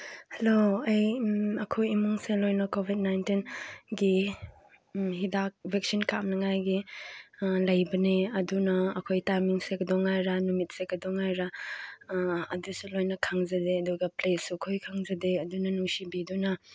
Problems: none marked